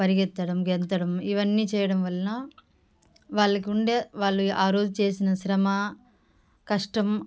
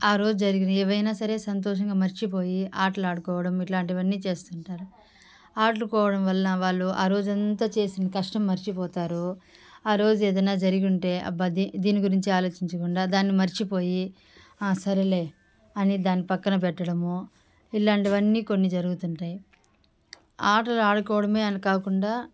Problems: background sounds at intervals